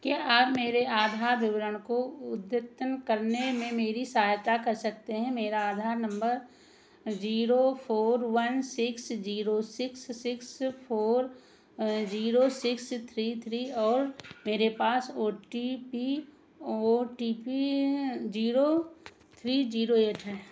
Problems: background sounds at intervals, echo